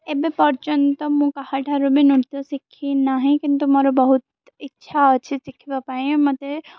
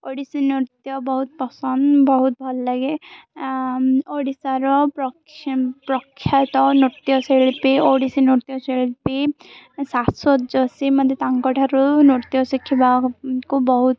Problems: none marked